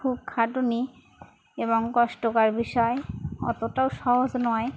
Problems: constant background noise, background conversations at intervals